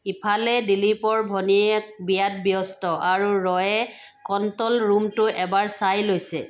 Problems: background sounds at intervals